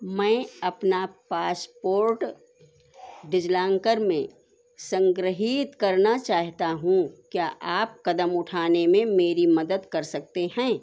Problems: constant background noise